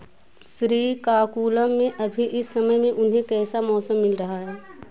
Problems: none marked